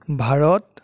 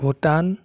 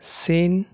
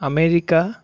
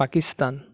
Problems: none marked